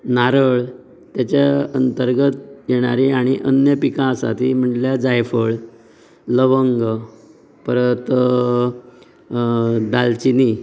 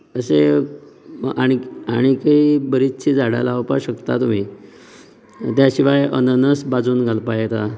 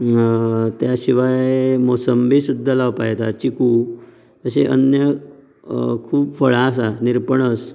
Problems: low volume